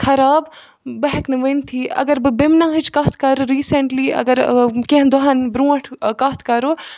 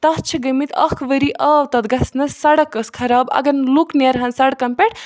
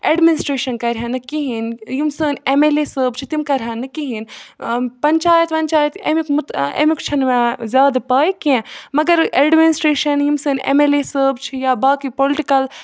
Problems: background sounds at intervals